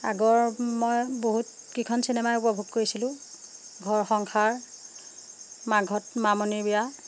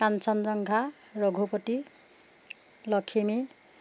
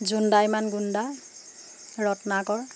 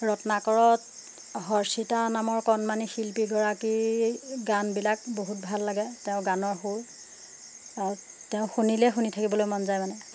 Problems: none marked